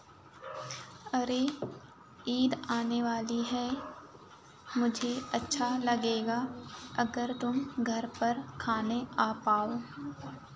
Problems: none marked